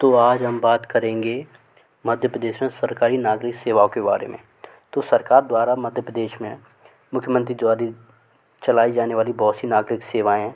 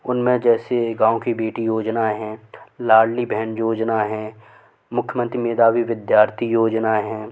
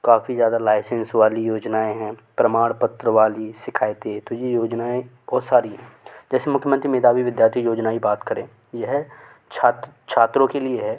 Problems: constant background noise